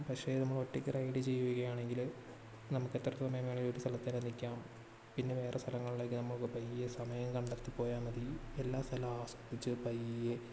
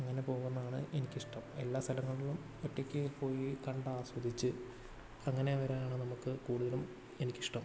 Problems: low volume